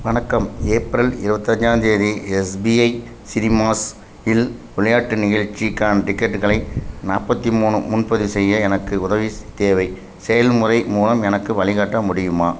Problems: none marked